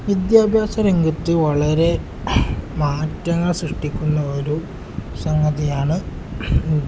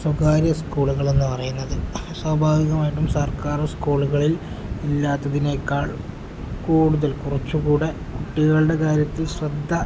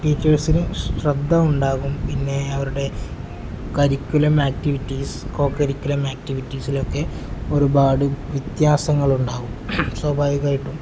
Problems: background sounds at intervals